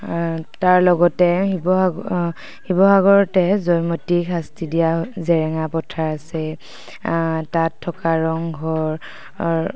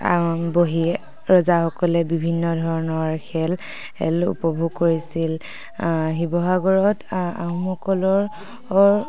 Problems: background sounds at intervals